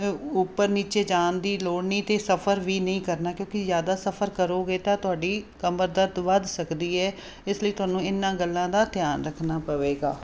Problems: constant background noise